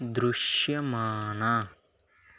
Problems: none marked